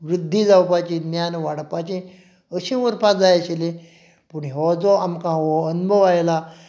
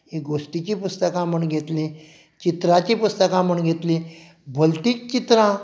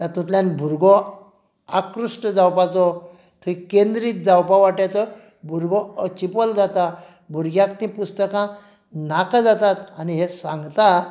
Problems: none marked